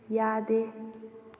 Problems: low volume